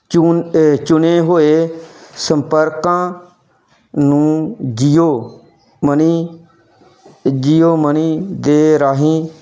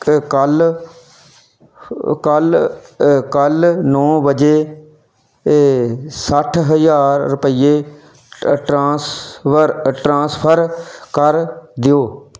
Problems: background sounds at intervals